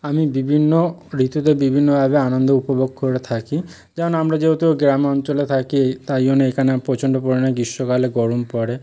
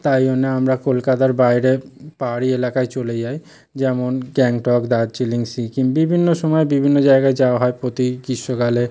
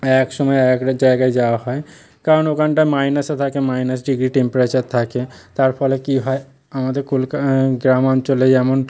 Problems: background sounds at intervals